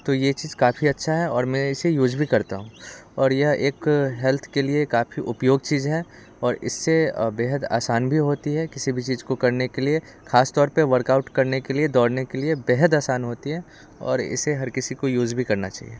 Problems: constant background noise